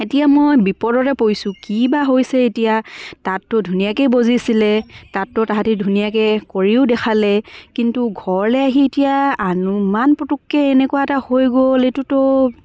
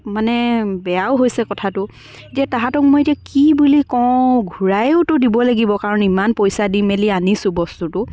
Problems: background sounds at intervals, background conversations at intervals